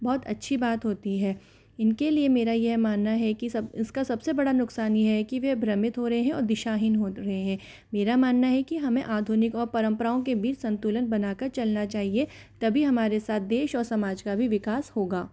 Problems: none marked